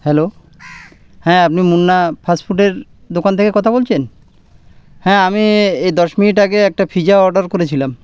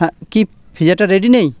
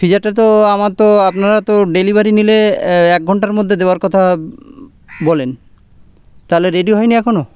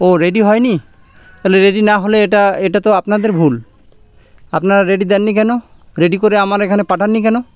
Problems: none marked